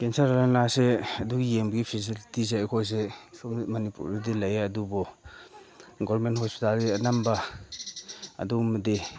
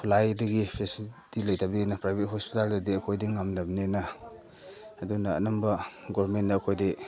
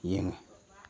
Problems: background sounds at intervals